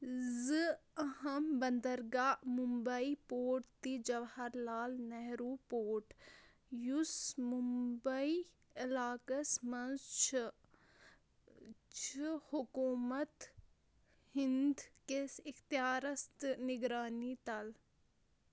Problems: constant background noise, low volume